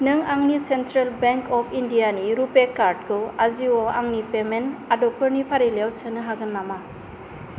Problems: constant background noise